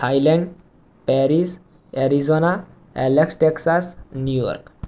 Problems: background sounds at intervals